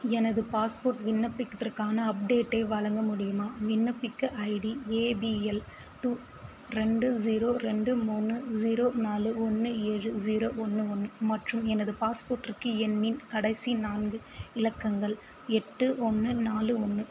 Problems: constant background noise